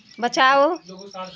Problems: constant background noise, background conversations at intervals